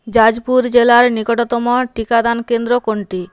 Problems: constant background noise